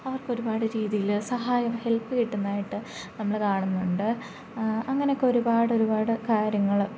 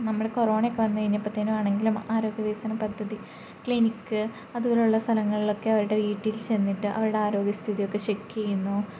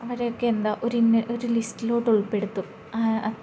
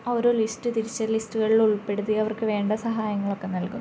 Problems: low volume